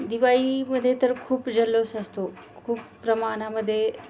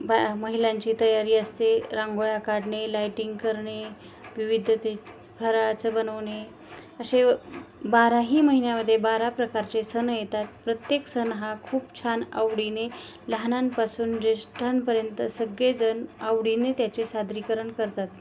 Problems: constant background noise